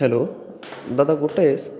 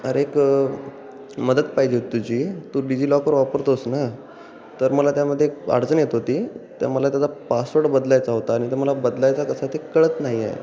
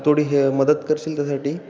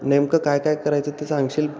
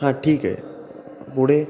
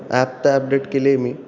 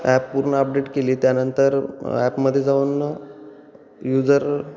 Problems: constant background noise, background conversations at intervals